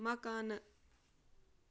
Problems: background sounds at intervals